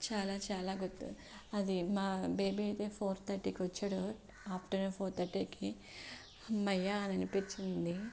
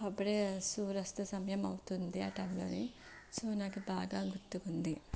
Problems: none marked